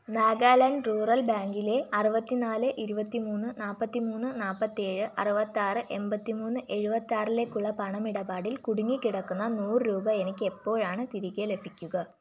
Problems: none marked